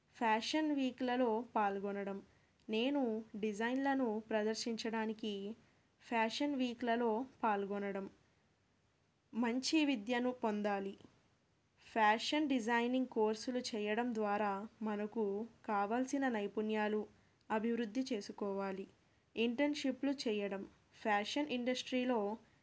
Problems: none marked